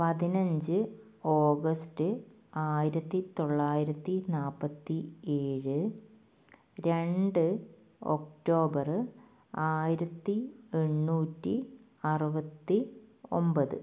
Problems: low volume